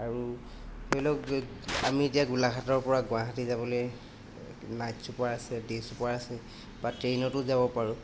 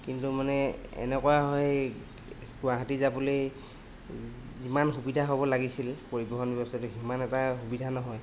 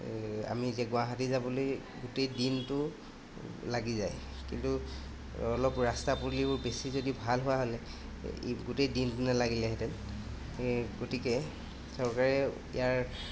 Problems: constant background noise